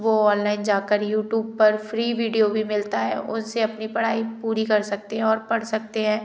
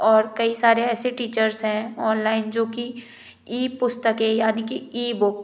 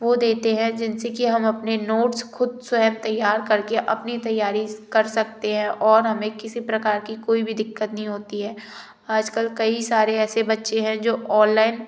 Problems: none marked